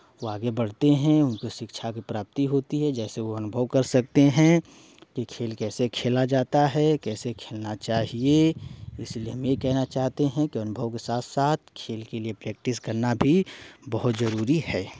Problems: constant background noise